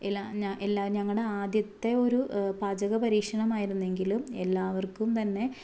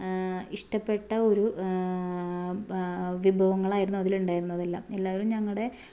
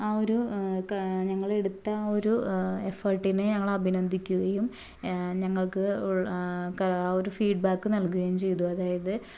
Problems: low volume